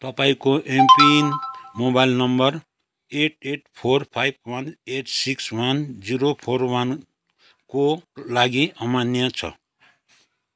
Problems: none marked